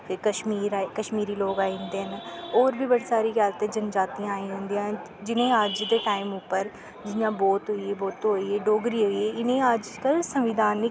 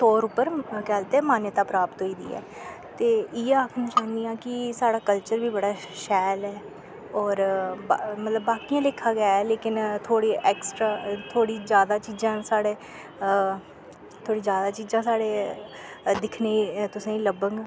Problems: constant background noise